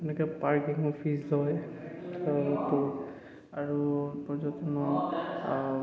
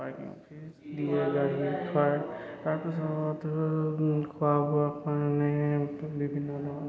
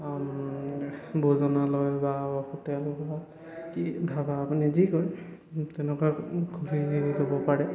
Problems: echo